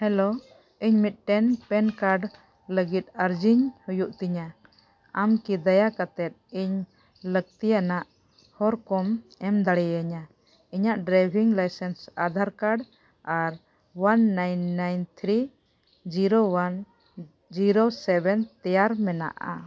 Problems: none marked